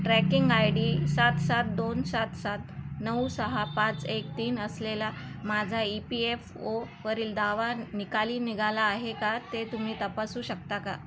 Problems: constant background noise, background conversations at intervals